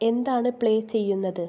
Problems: low volume